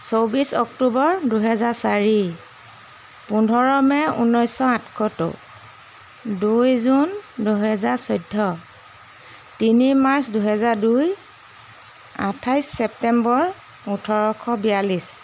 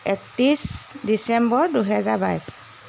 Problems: constant background noise